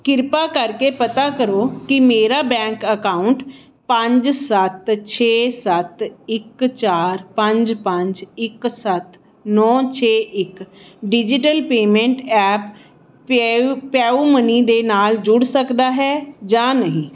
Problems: none marked